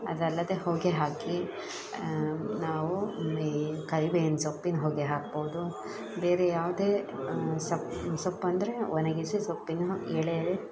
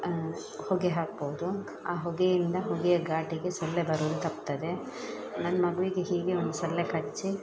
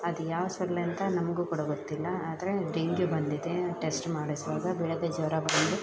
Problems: background sounds at intervals